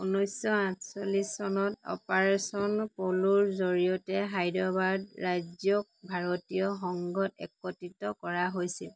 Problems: none marked